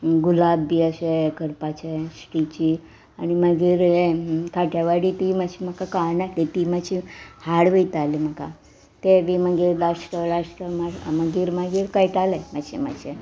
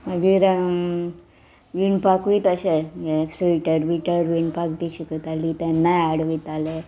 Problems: background sounds at intervals